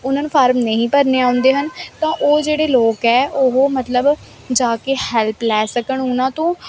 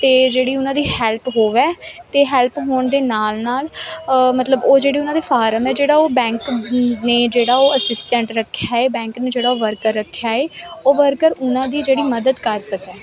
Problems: constant background noise